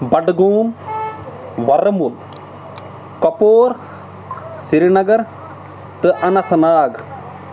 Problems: constant background noise